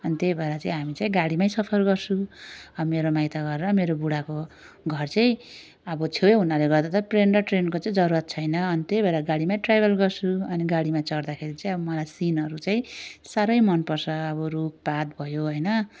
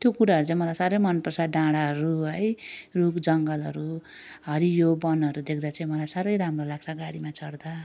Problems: none marked